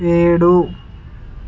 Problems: constant background noise